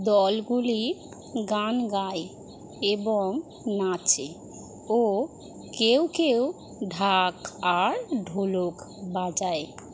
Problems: none marked